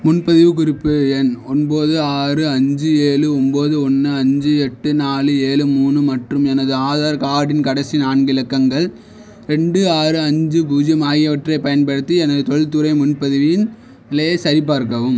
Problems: none marked